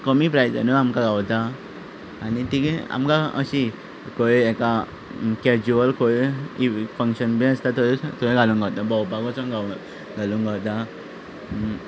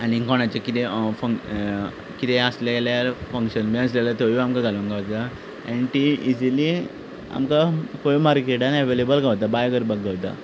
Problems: none marked